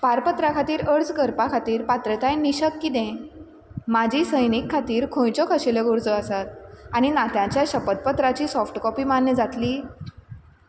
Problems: constant background noise